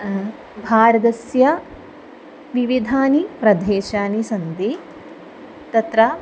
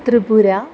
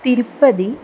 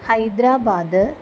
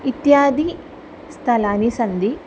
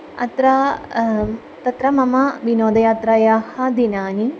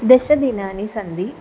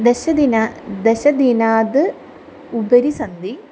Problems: background sounds at intervals